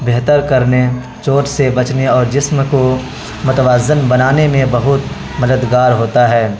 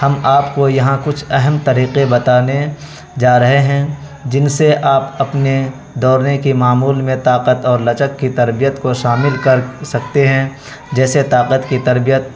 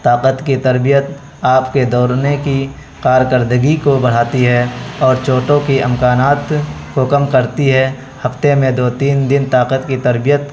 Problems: constant background noise